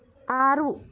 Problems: none marked